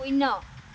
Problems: none marked